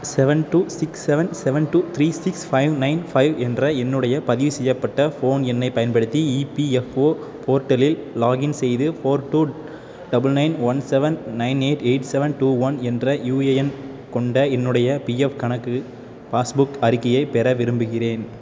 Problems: constant background noise